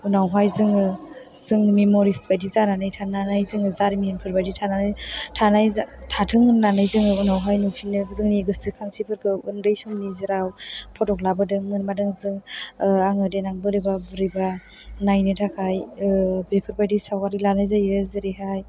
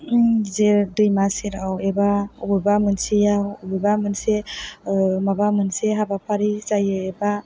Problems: background conversations at intervals